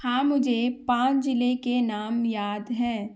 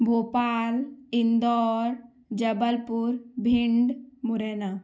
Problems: background sounds at intervals